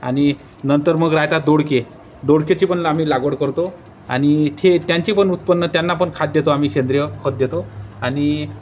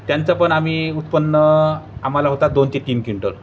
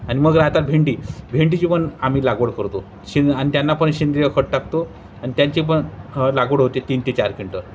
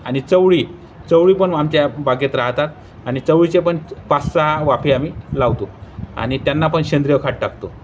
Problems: constant background noise, background conversations at intervals